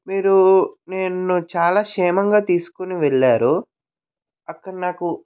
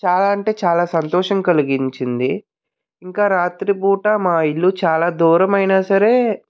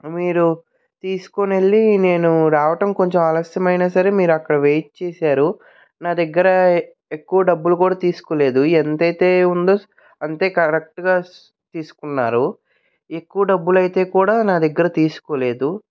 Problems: background sounds at intervals